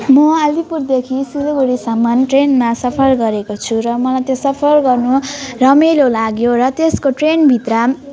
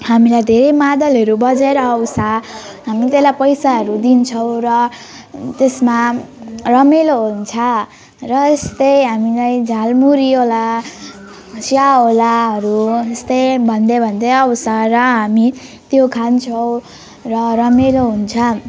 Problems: none marked